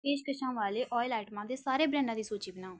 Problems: background sounds at intervals